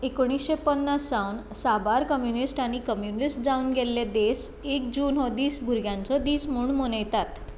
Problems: none marked